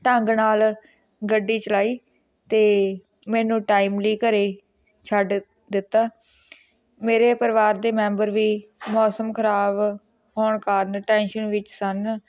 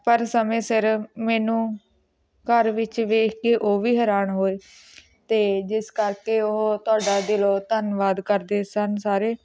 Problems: none marked